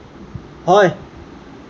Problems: constant background noise